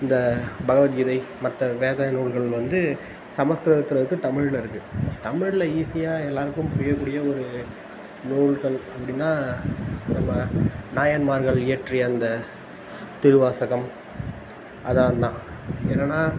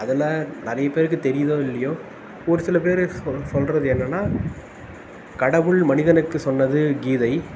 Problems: constant background noise